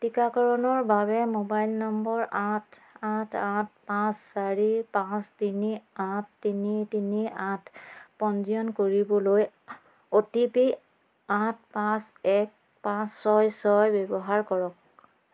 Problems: constant background noise